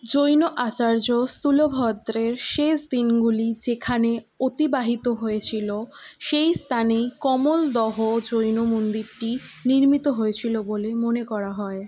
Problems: none marked